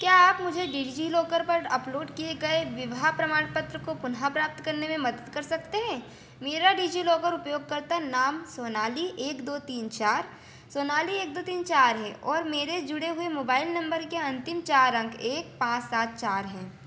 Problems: constant background noise